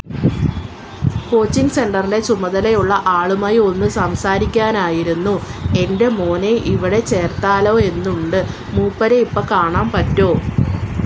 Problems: constant background noise